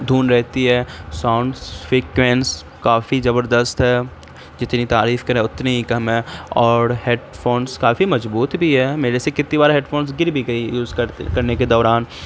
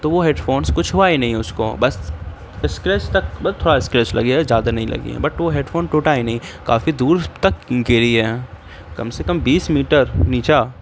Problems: constant background noise